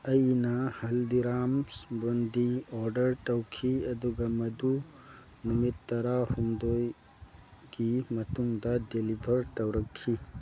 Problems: constant background noise